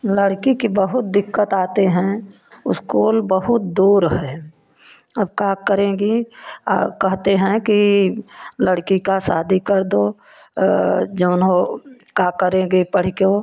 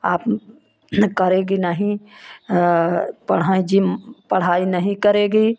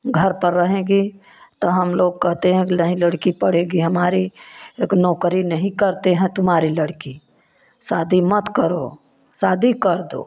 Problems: none marked